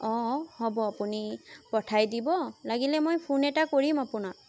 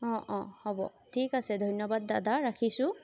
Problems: constant background noise